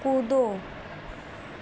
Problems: constant background noise